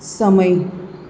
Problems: none marked